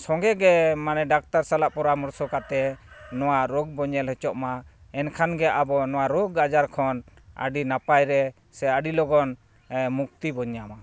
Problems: none marked